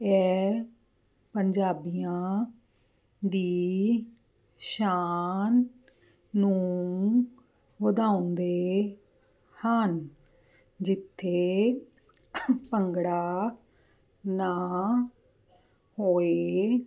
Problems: none marked